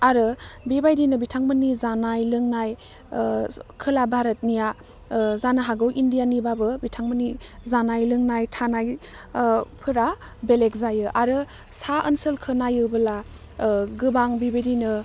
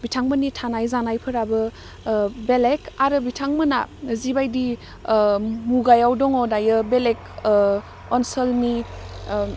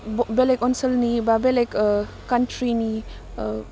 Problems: none marked